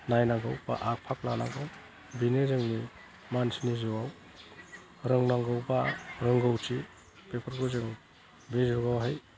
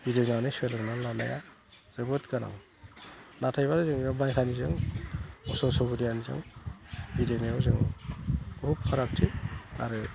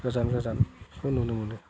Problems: low volume